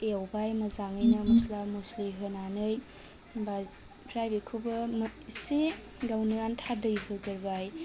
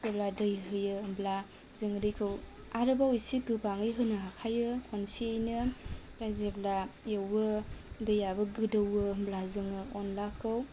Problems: low volume